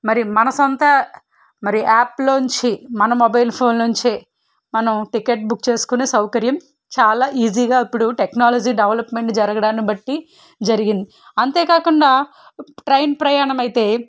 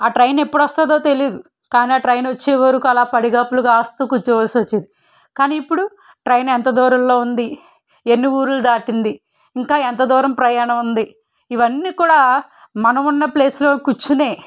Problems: none marked